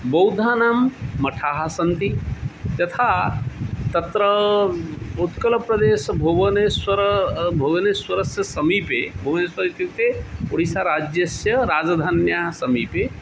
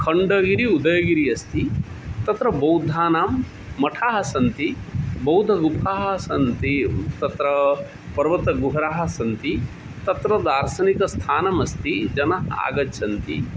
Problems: constant background noise